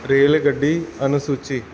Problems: background sounds at intervals